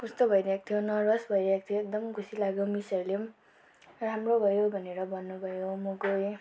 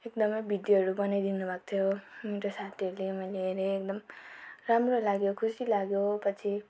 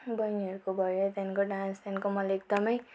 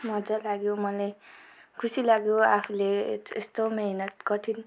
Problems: background sounds at intervals